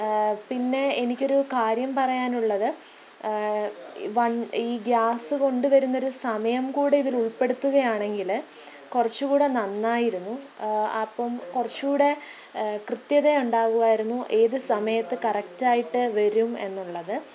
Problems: low volume